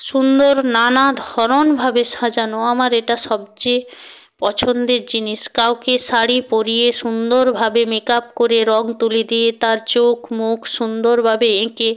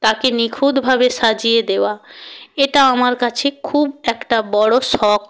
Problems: constant background noise